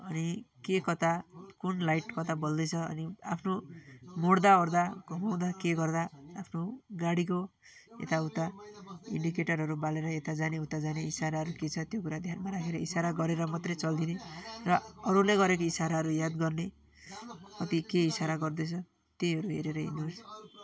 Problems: continuous background conversations